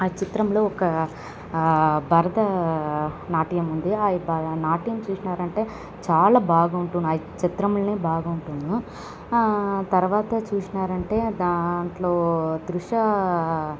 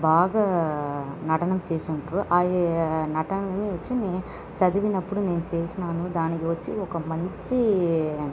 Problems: none marked